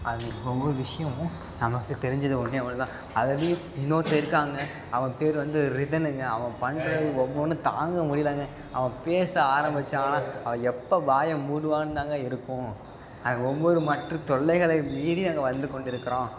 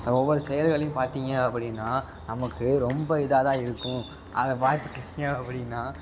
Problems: background sounds at intervals, background conversations at intervals